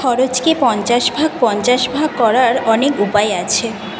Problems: constant background noise